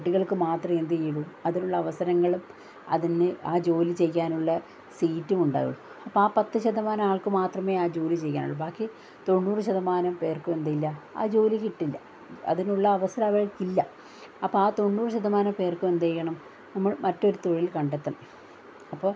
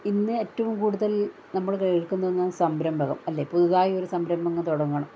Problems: low volume